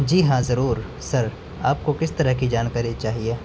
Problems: constant background noise